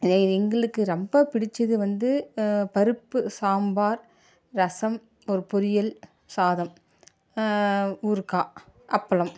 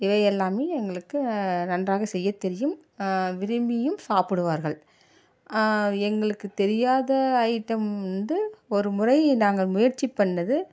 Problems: none marked